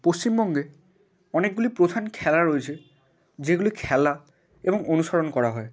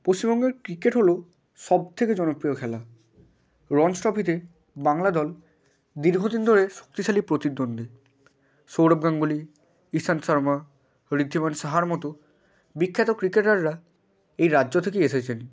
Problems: none marked